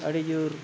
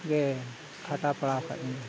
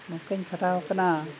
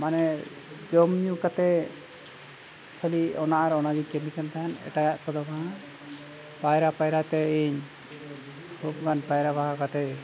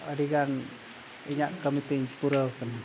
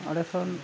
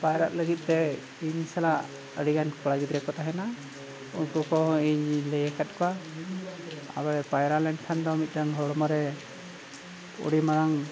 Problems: constant background noise